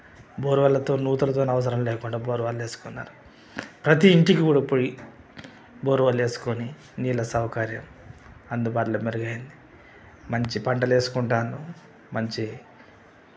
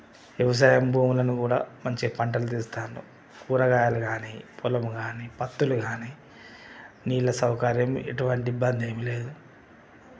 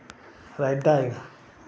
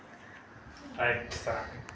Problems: constant background noise, background conversations at intervals